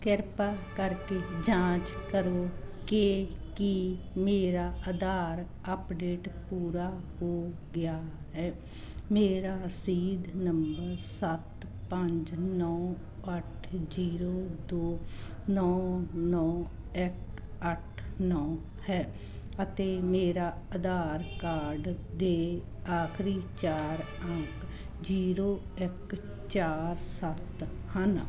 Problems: background sounds at intervals